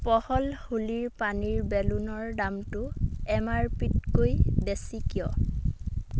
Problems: background sounds at intervals